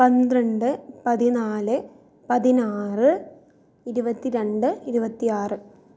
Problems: low volume